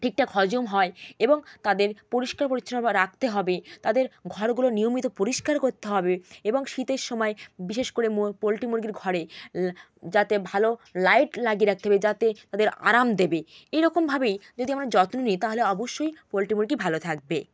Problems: none marked